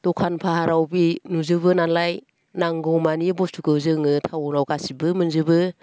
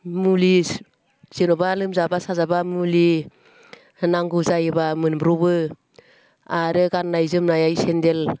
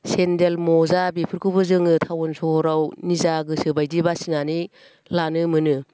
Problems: none marked